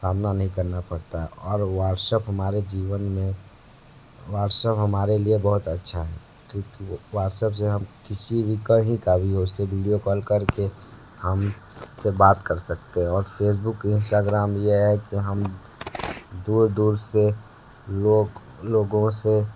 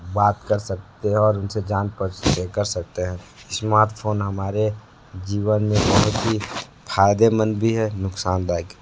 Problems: constant background noise, low volume